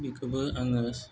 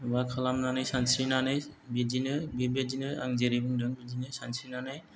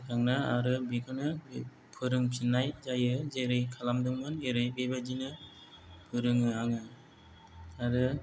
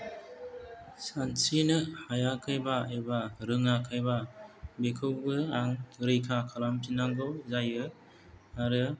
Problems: low volume